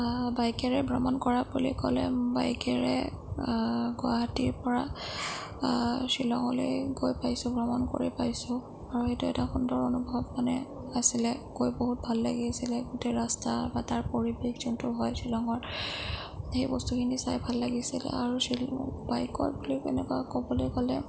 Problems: low volume